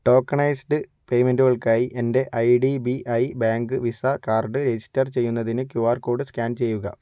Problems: none marked